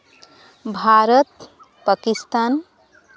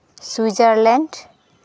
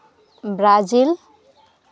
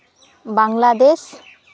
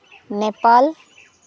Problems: none marked